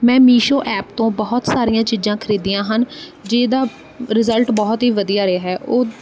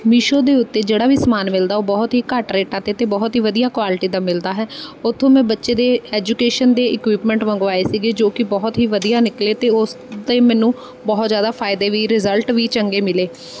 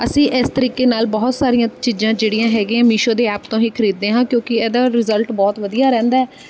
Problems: background sounds at intervals